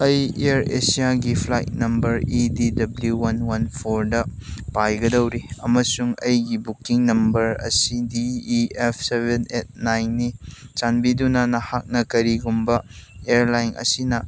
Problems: background sounds at intervals